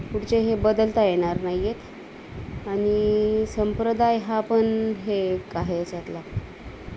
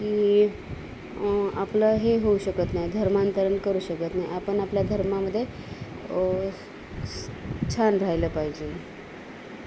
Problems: none marked